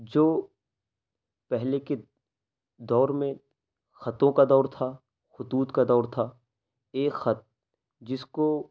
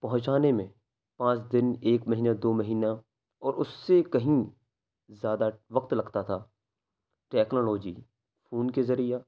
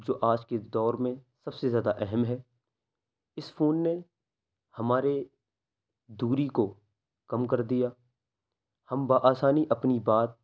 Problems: constant background noise